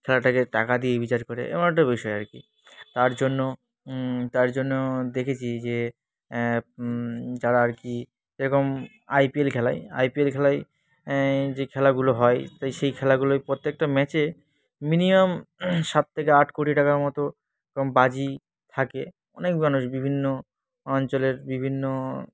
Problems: constant background noise, background conversations at intervals